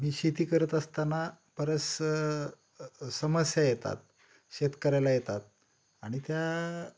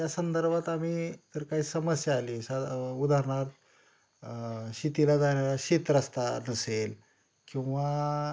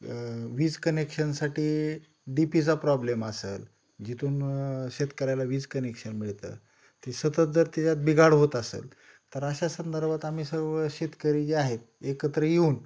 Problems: none marked